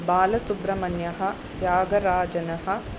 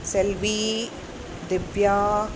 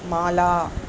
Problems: constant background noise